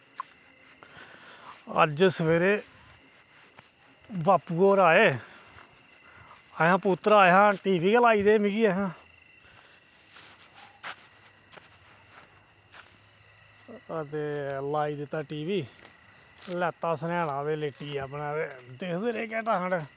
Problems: none marked